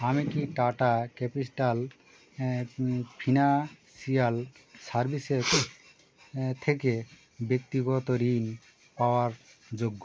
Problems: background sounds at intervals